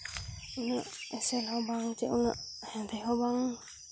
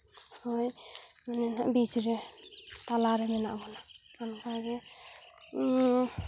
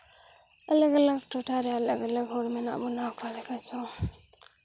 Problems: background sounds at intervals